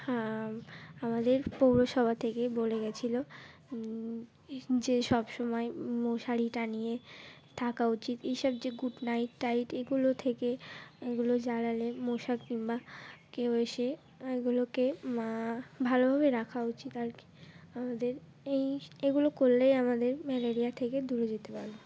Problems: constant background noise